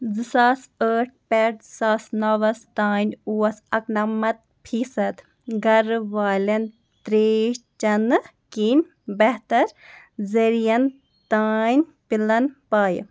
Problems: none marked